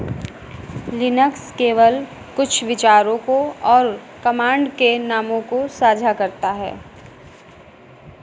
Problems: echo